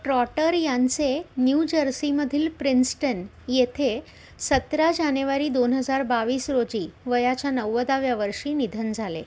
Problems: constant background noise